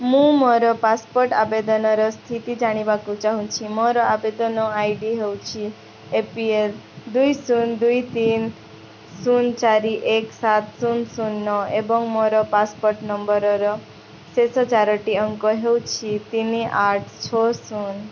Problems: constant background noise